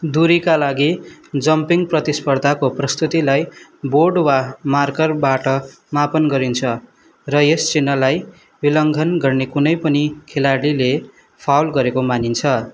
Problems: background sounds at intervals